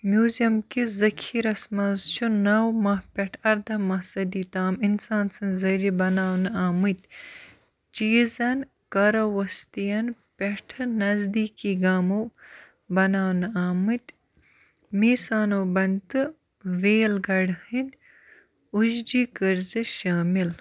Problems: background sounds at intervals